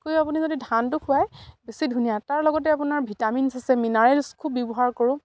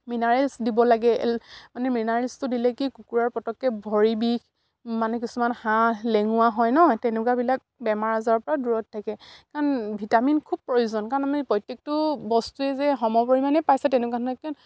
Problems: none marked